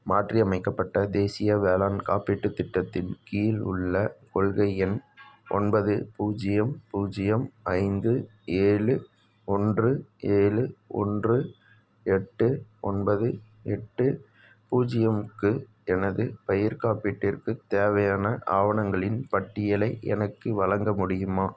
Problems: background sounds at intervals